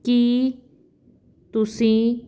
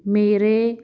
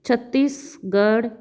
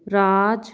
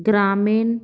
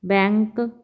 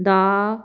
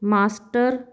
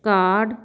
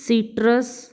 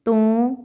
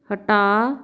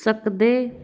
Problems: background sounds at intervals